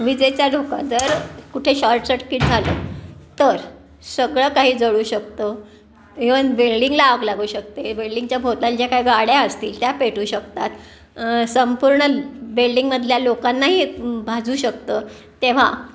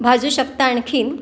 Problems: constant background noise